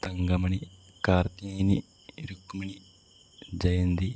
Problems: low volume